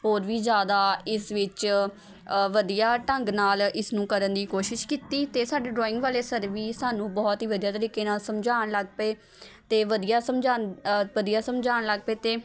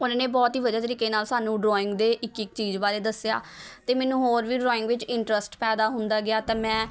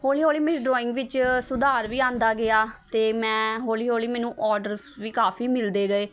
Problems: constant background noise